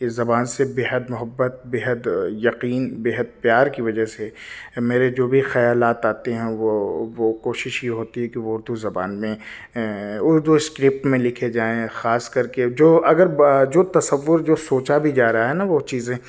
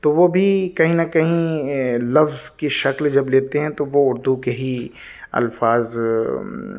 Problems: none marked